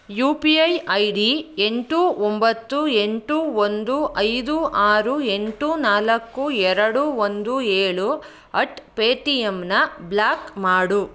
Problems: none marked